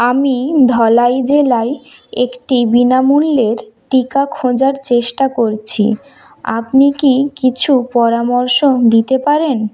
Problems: background sounds at intervals